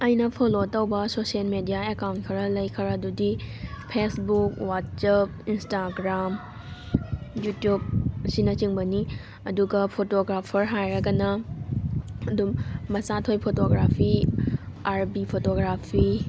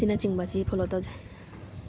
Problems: constant background noise